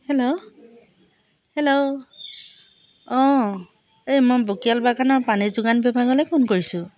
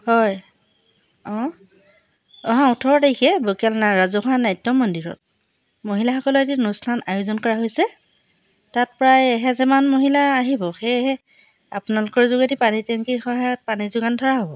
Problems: none marked